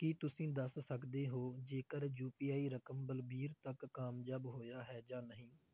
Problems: none marked